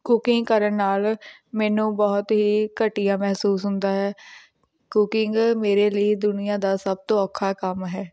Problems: background sounds at intervals